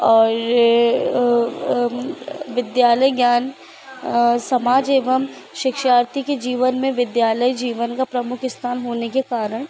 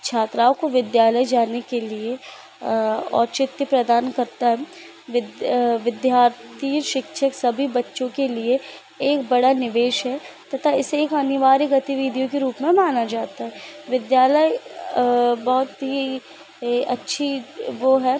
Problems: constant background noise